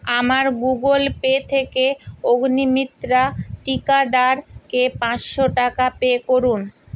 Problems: none marked